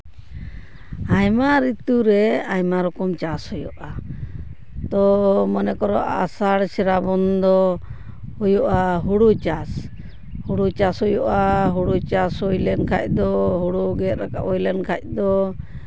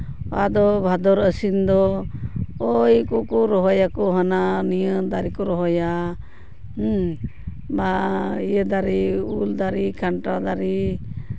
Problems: background sounds at intervals